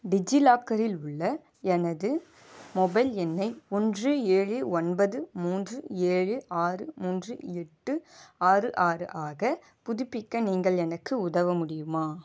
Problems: none marked